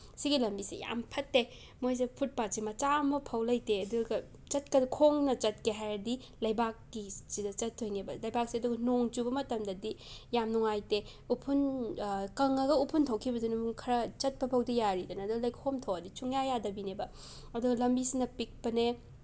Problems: background sounds at intervals